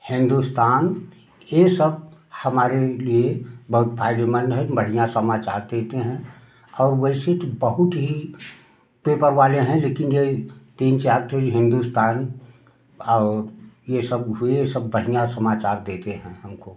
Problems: background sounds at intervals